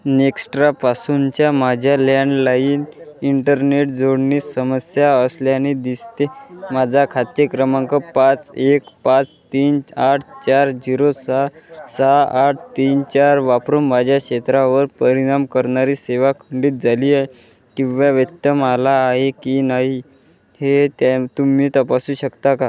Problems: none marked